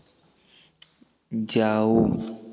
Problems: background sounds at intervals